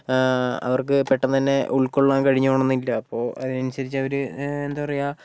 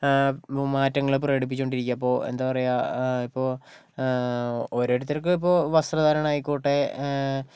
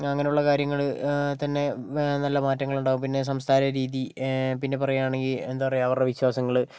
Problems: background sounds at intervals